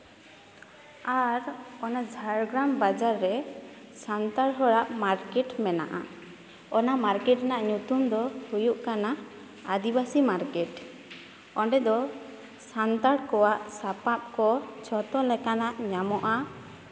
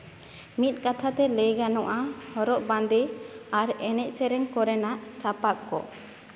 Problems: background sounds at intervals, continuous background conversations